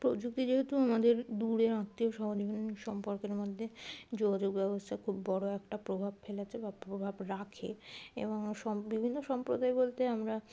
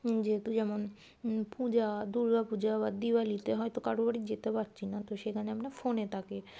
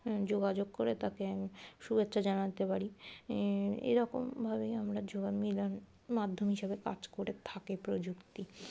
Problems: none marked